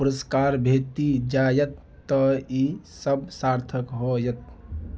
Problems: none marked